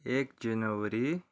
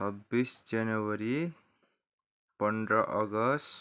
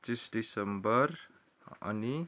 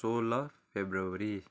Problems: constant background noise